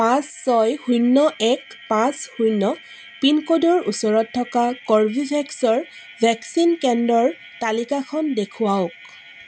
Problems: constant background noise